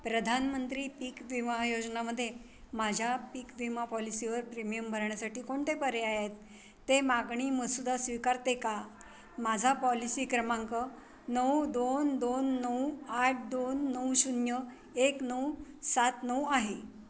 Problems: none marked